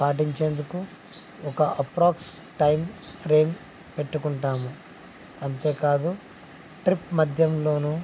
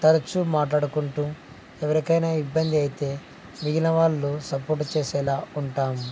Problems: constant background noise, low volume